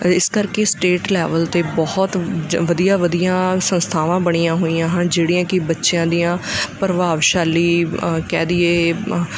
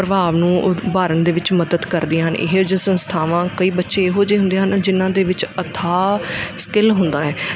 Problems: background sounds at intervals